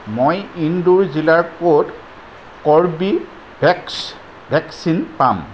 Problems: background sounds at intervals